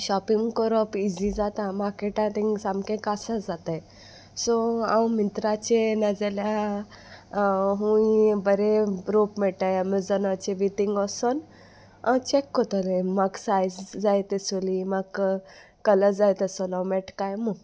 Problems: constant background noise